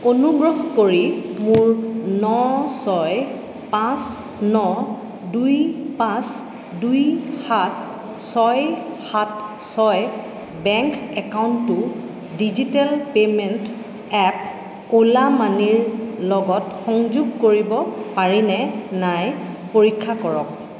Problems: echo